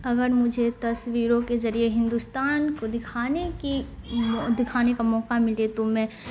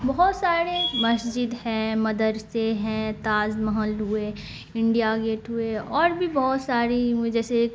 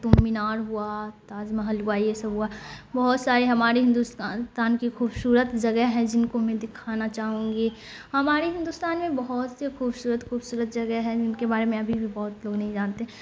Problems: constant background noise